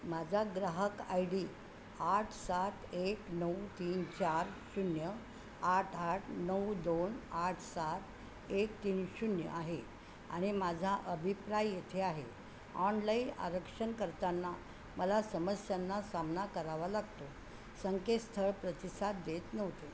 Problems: constant background noise, background conversations at intervals